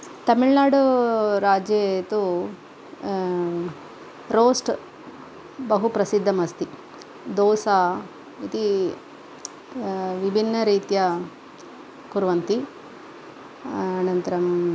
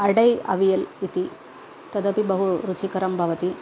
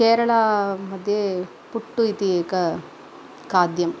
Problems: none marked